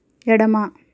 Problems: none marked